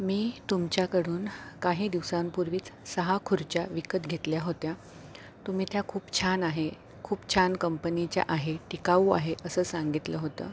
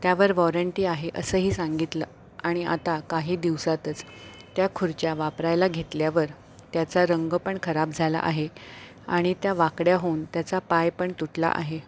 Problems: none marked